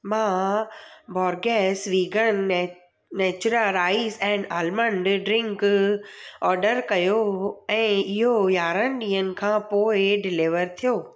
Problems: none marked